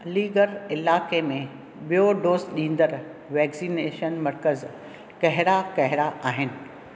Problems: none marked